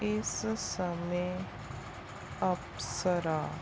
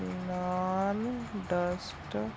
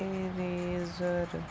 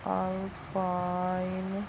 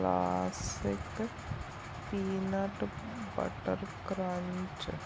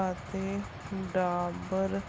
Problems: continuous background conversations